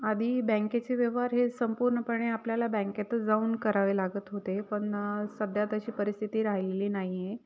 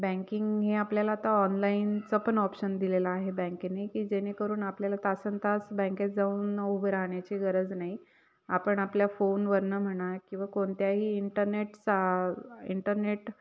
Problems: none marked